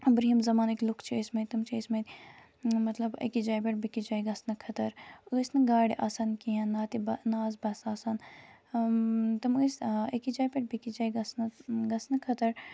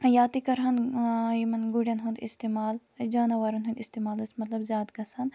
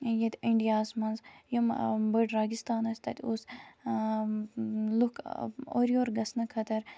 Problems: constant background noise